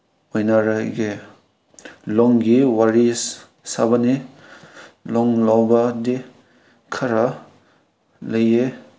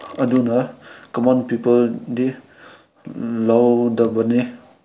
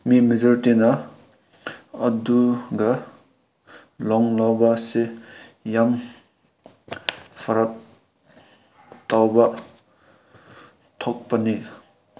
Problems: background sounds at intervals